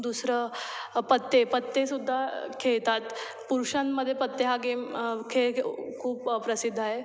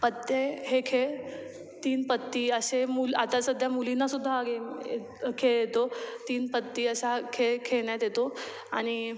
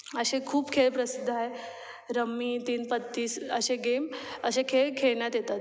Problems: background sounds at intervals